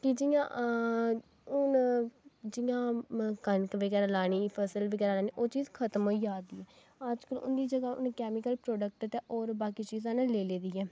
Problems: background sounds at intervals